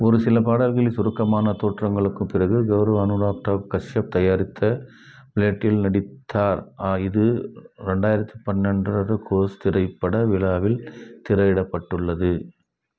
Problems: background sounds at intervals